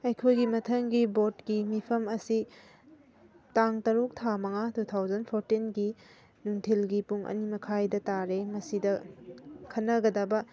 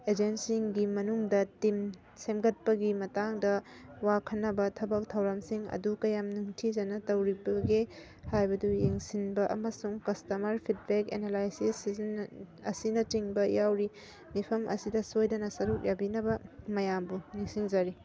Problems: background sounds at intervals